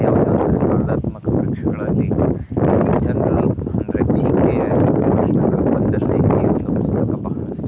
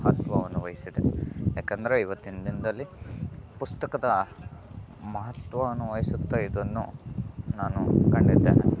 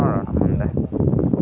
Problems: constant background noise